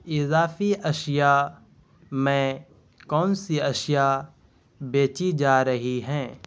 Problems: constant background noise